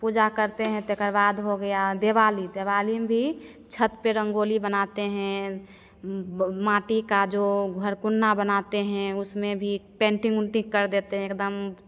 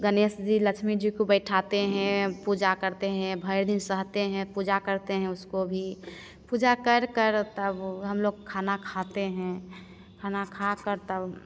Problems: constant background noise